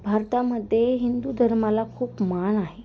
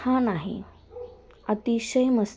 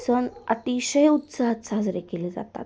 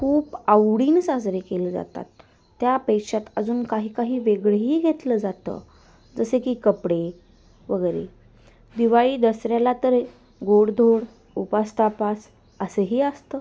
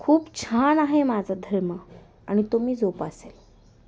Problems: constant background noise